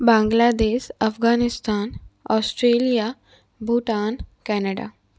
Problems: constant background noise